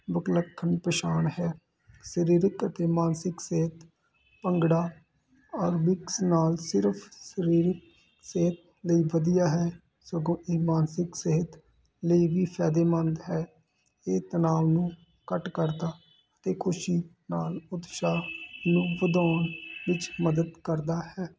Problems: constant background noise